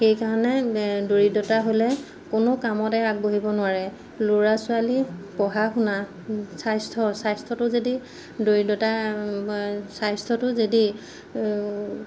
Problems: none marked